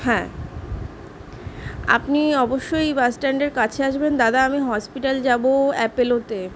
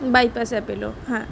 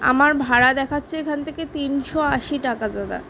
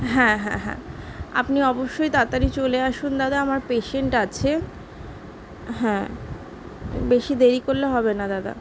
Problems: none marked